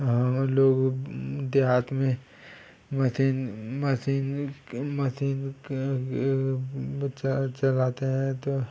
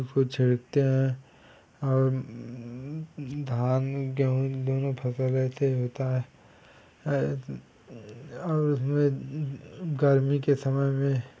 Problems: background sounds at intervals